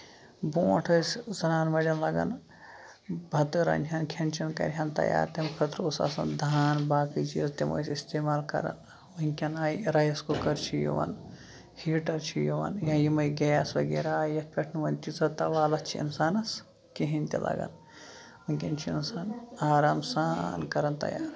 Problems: background sounds at intervals, low volume